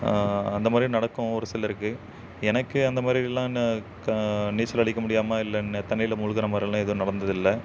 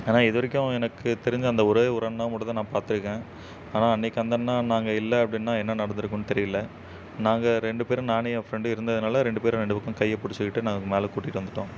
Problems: none marked